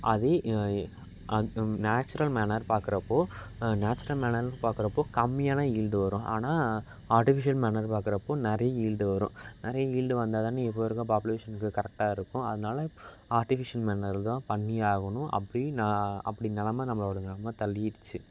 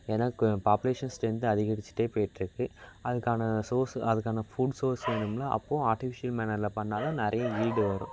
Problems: constant background noise, background conversations at intervals